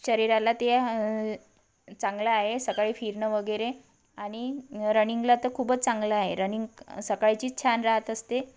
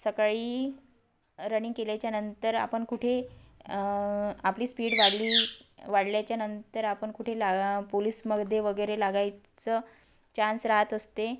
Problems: constant background noise